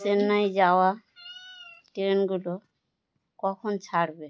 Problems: constant background noise